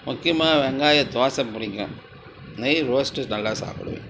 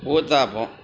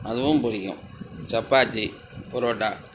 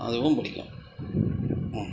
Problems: constant background noise, background conversations at intervals